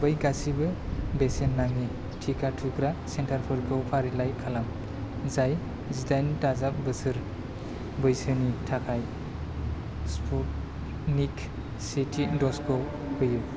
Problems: constant background noise